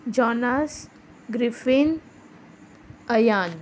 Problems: constant background noise